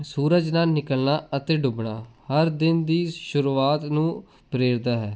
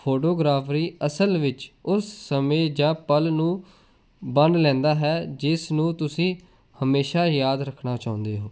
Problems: none marked